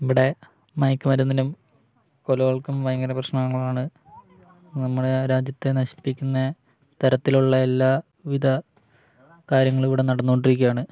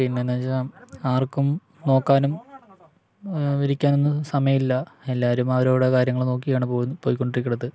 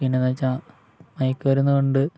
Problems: none marked